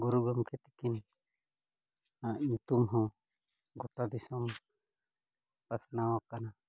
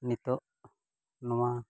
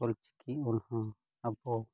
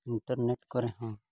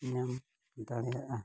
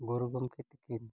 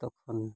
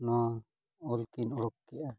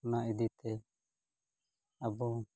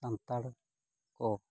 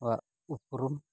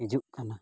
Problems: low volume